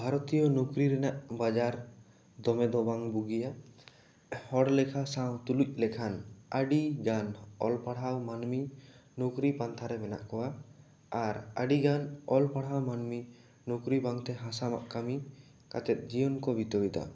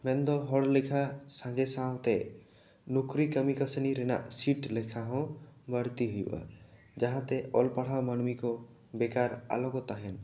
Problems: none marked